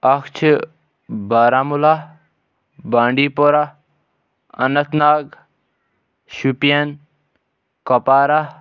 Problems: none marked